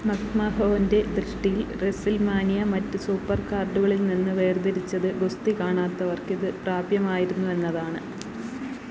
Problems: constant background noise